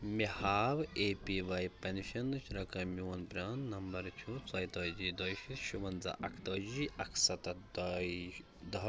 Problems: background sounds at intervals, background conversations at intervals